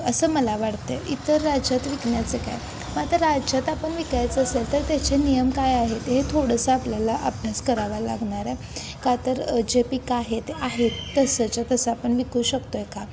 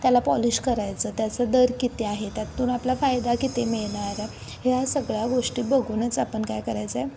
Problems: constant background noise